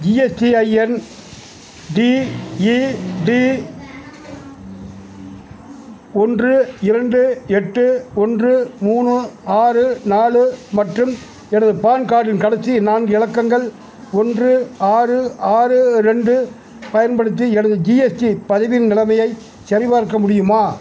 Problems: background sounds at intervals